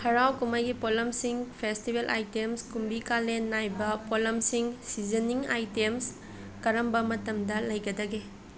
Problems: continuous background conversations